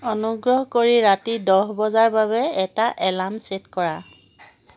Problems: constant background noise